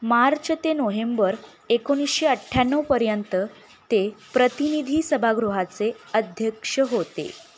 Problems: none marked